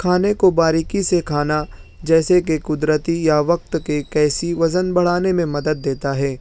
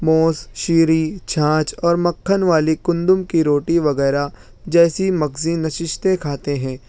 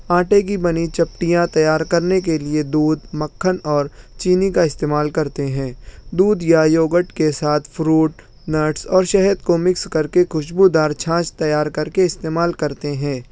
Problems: none marked